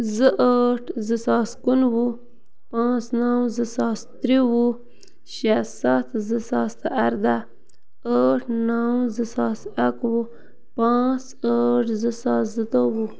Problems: constant background noise